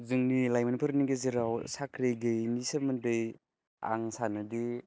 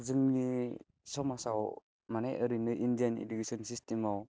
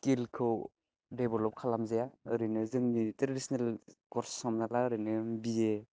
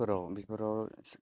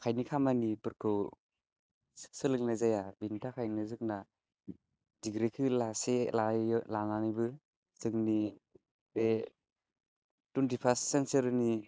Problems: none marked